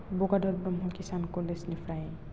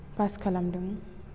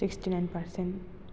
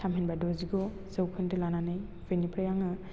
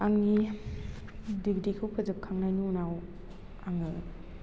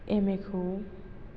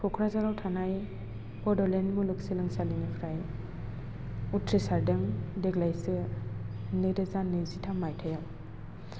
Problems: constant background noise